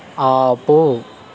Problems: constant background noise